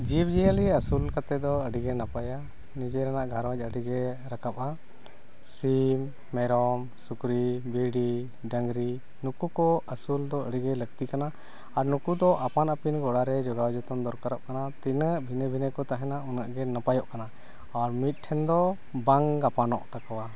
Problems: constant background noise